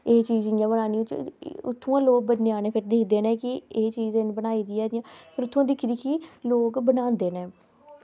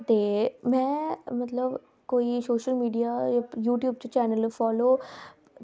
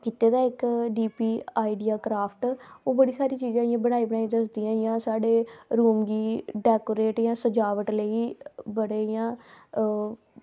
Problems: background sounds at intervals